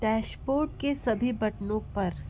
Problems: constant background noise